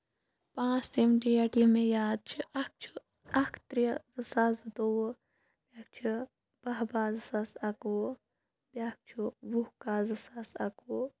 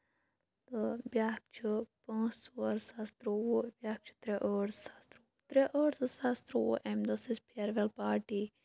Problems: background sounds at intervals